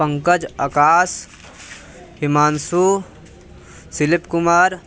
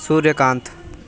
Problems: constant background noise, continuous background conversations